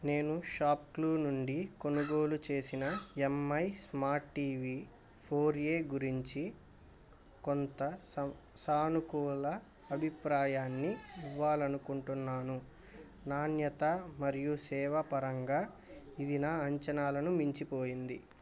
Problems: constant background noise